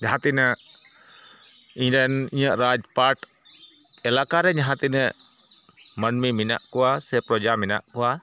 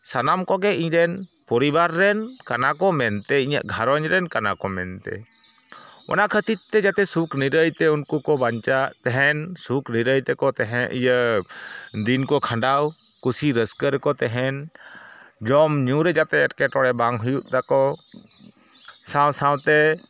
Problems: background sounds at intervals